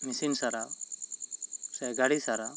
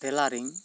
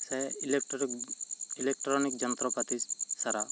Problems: constant background noise